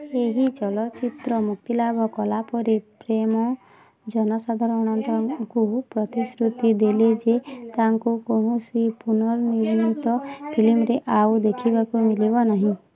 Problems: constant background noise